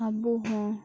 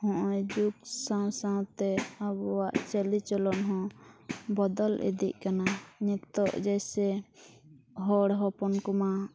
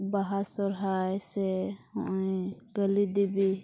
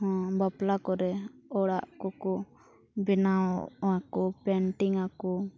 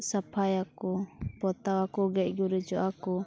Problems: background sounds at intervals